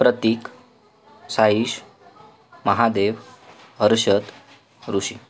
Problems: none marked